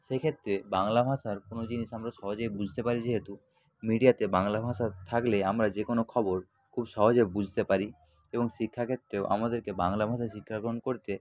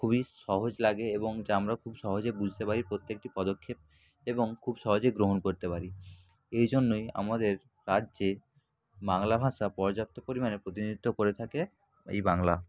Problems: constant background noise, background conversations at intervals